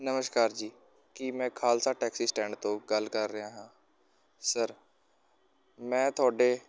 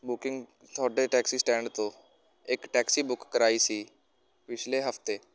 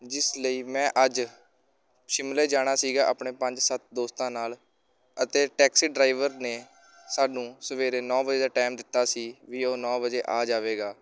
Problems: constant background noise, background conversations at intervals